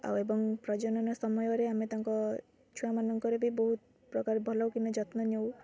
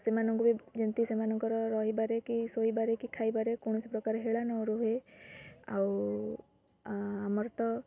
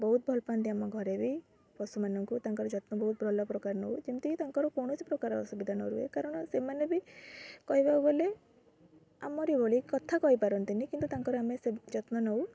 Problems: constant background noise